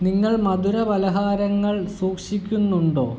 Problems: constant background noise